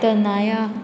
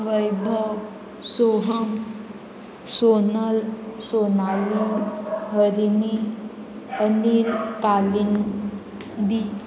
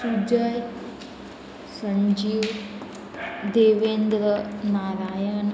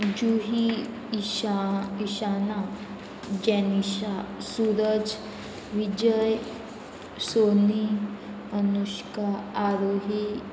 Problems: constant background noise, continuous background conversations